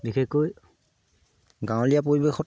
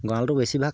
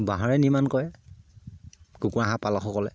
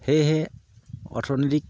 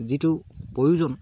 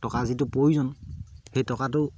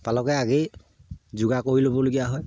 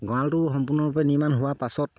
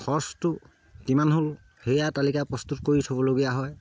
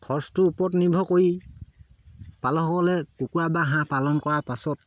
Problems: none marked